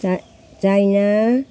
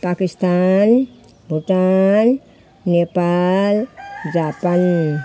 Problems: none marked